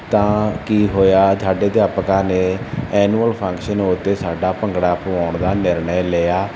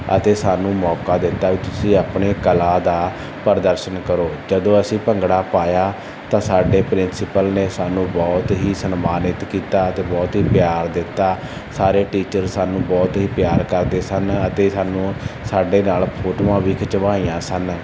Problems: none marked